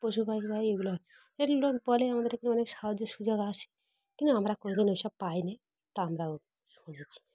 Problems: none marked